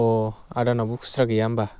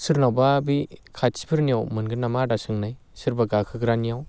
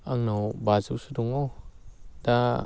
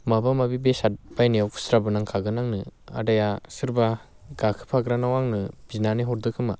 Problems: none marked